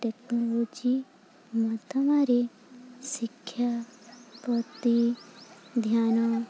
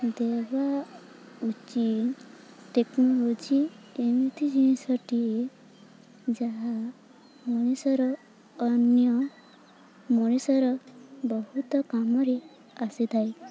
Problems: constant background noise, continuous background conversations